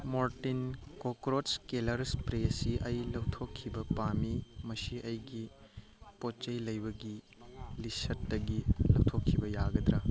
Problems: background conversations at intervals